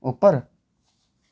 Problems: none marked